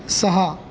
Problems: none marked